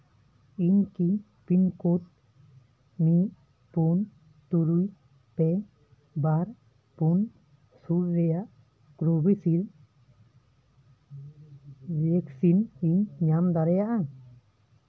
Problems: background sounds at intervals